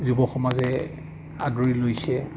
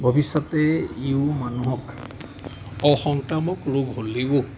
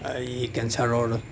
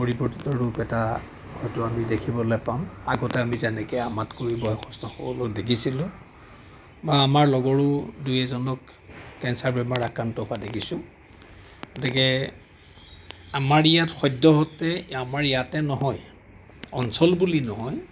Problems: constant background noise, background conversations at intervals